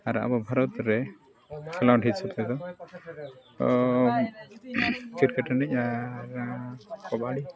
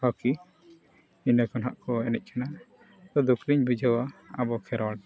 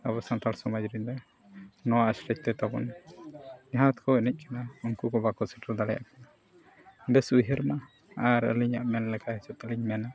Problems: background sounds at intervals, continuous background conversations, low volume